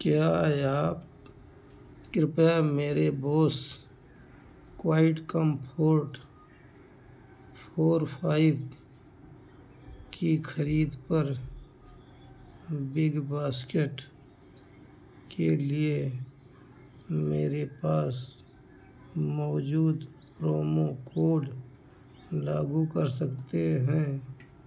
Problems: background sounds at intervals